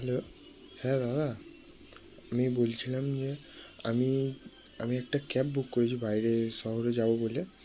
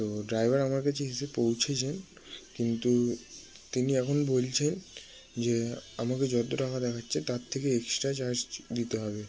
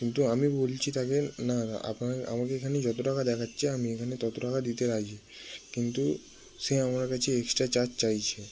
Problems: background sounds at intervals